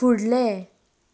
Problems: background sounds at intervals